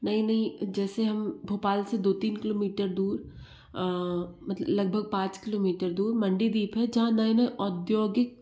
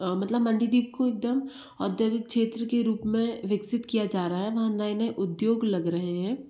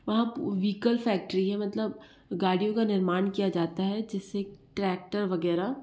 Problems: background sounds at intervals